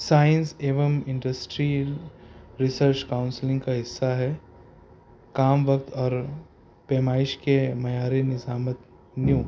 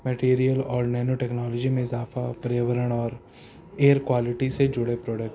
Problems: constant background noise